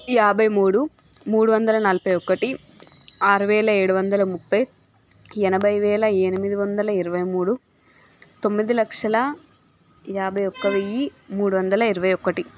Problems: constant background noise, background conversations at intervals